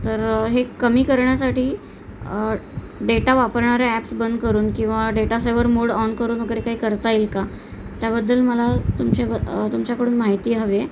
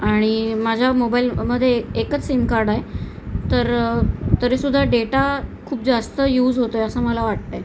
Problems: constant background noise